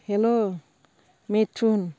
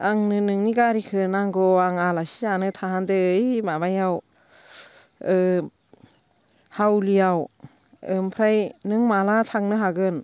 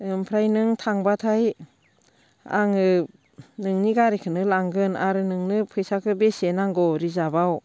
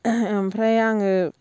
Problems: constant background noise